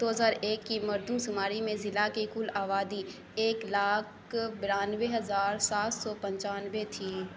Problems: constant background noise